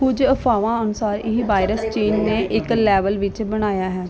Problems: continuous background conversations